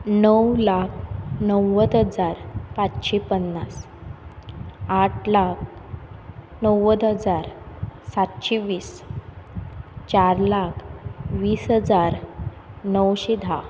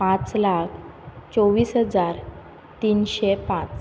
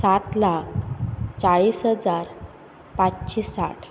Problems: none marked